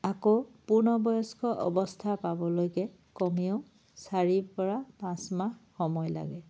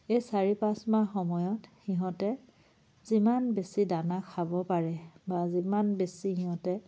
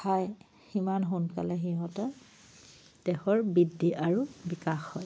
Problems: none marked